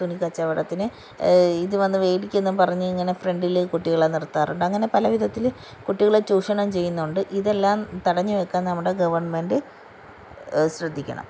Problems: none marked